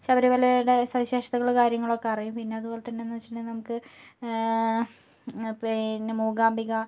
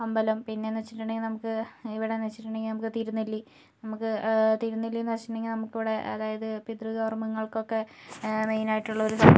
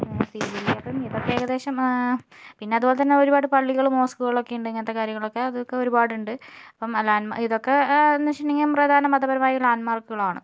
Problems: low volume